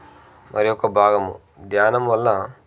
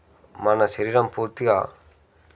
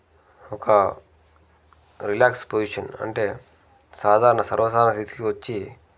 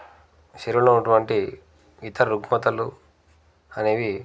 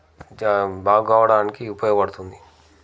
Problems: none marked